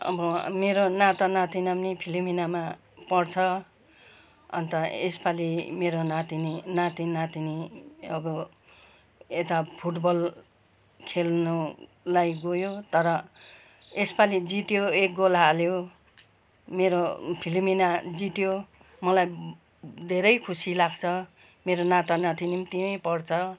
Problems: none marked